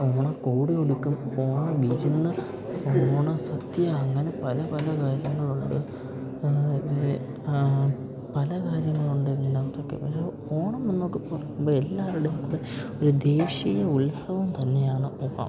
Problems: none marked